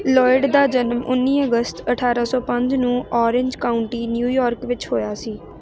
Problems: none marked